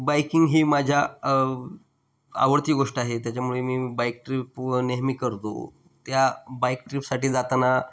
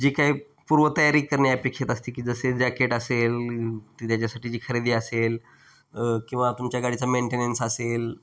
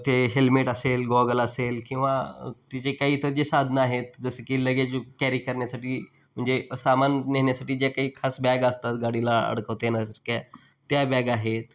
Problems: none marked